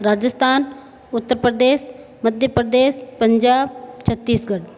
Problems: background sounds at intervals